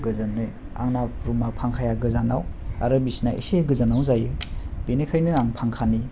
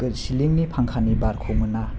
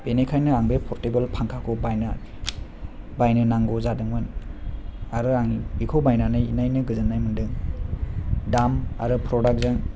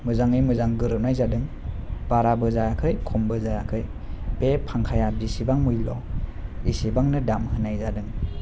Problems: low volume